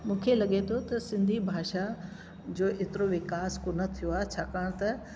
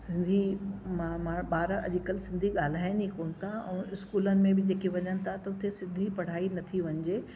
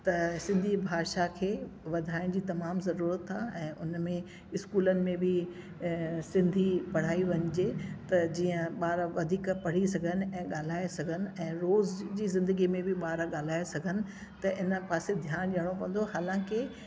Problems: constant background noise